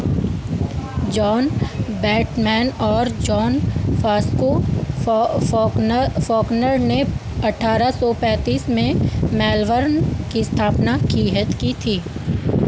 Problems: constant background noise